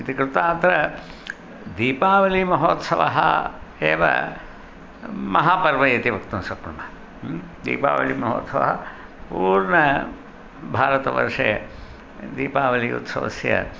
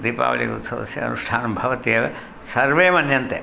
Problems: constant background noise